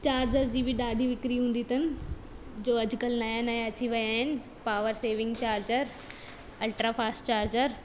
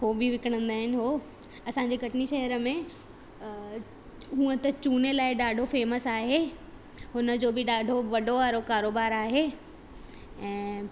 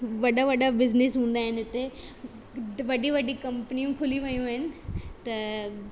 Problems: constant background noise, echo